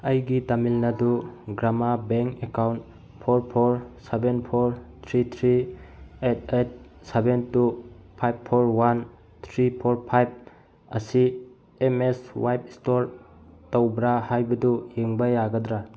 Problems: none marked